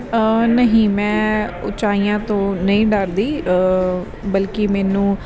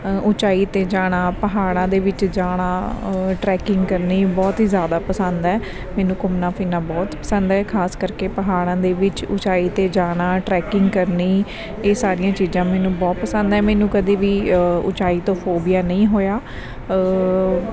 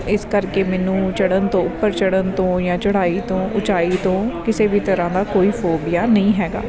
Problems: constant background noise